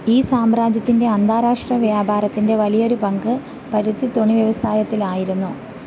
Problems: constant background noise